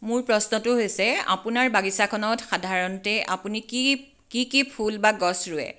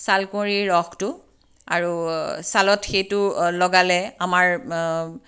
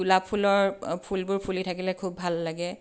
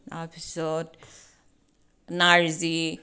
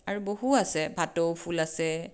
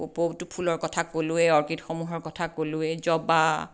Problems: none marked